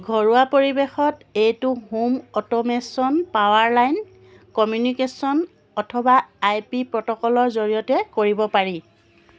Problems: background sounds at intervals